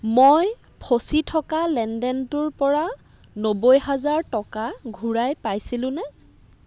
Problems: constant background noise